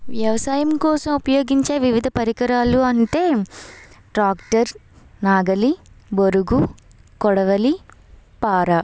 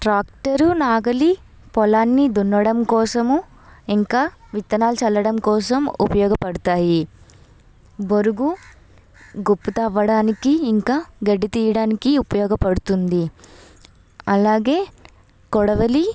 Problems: background sounds at intervals, background conversations at intervals